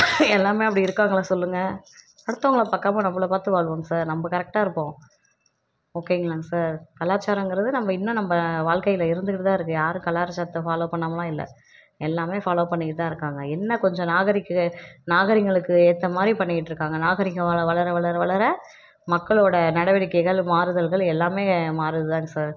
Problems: none marked